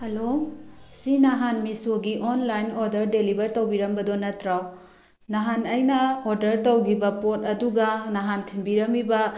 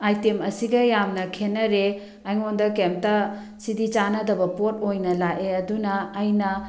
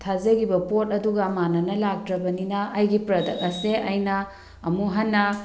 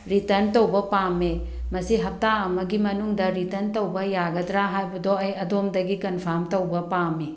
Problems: background conversations at intervals